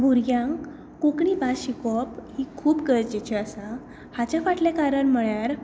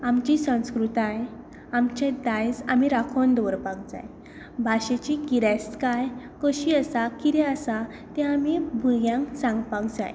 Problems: none marked